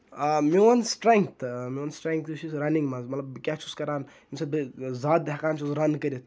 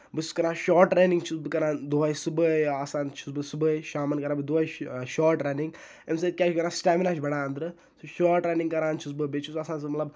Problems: none marked